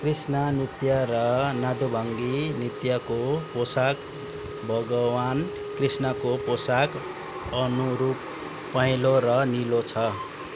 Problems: background sounds at intervals